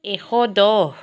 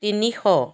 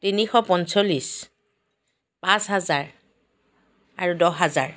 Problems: background sounds at intervals